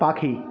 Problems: background conversations at intervals